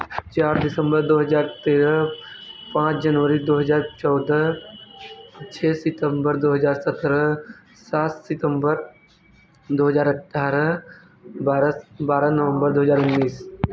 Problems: background sounds at intervals